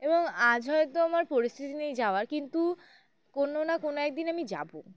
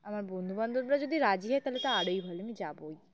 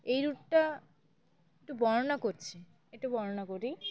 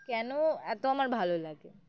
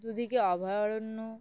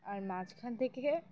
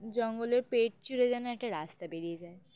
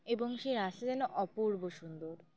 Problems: background sounds at intervals, background conversations at intervals